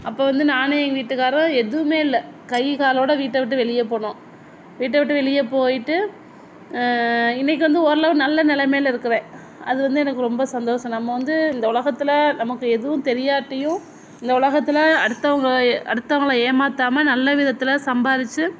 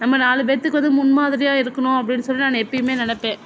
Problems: none marked